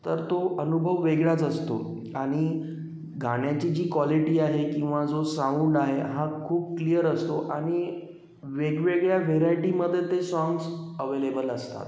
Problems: constant background noise